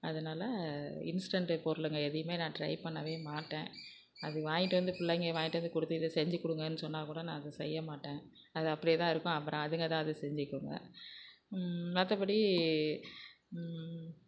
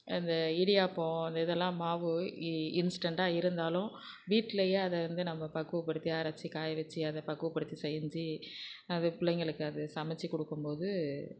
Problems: background sounds at intervals